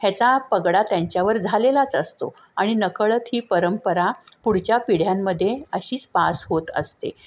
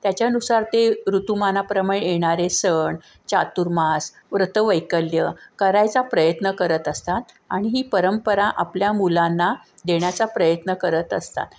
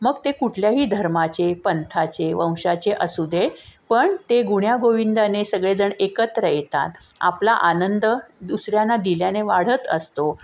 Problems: none marked